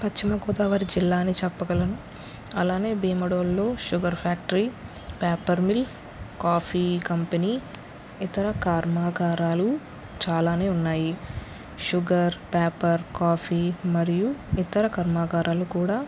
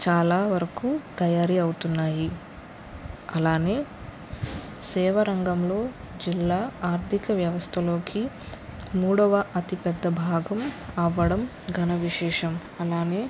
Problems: constant background noise